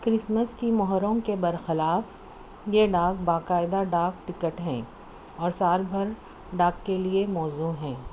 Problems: none marked